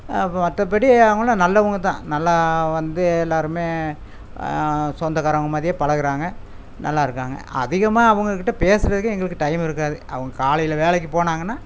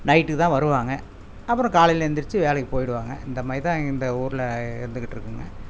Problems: constant background noise